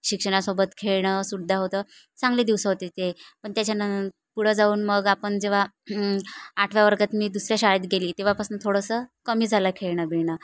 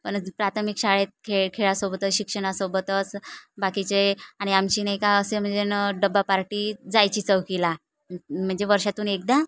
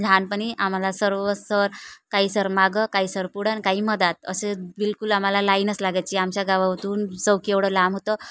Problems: none marked